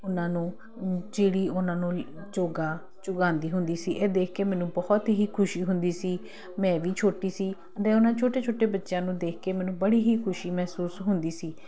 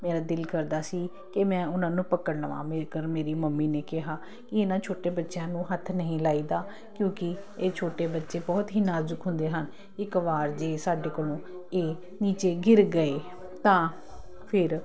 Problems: constant background noise